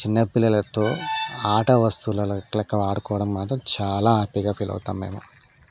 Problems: constant background noise